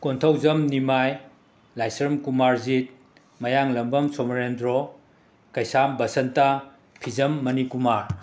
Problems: none marked